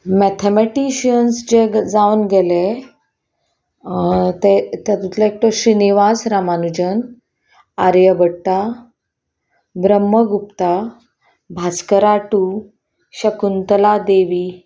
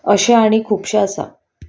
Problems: background sounds at intervals